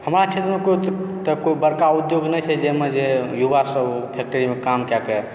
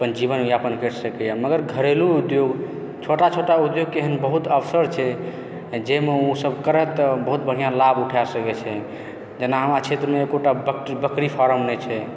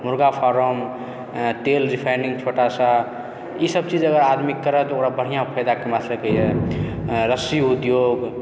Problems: background sounds at intervals, continuous background conversations